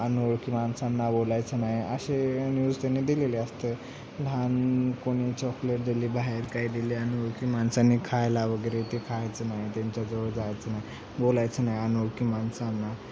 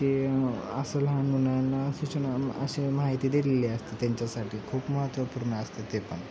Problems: none marked